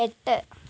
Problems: constant background noise